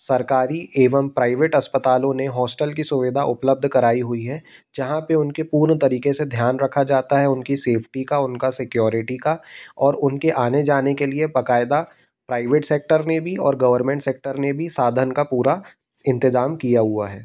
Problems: background sounds at intervals